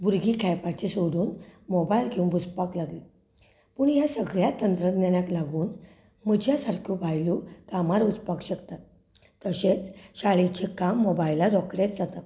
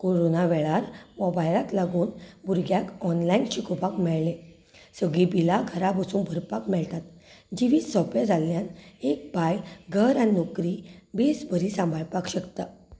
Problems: background conversations at intervals